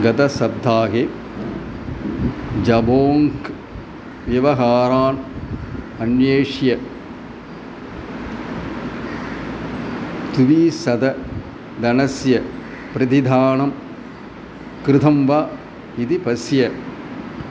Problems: none marked